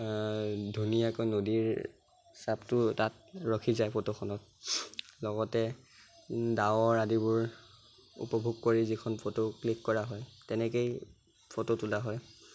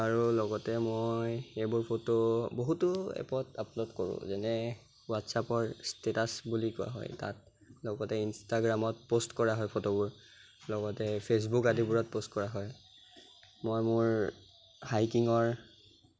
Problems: constant background noise